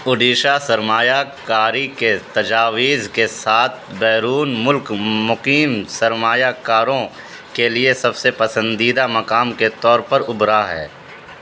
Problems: constant background noise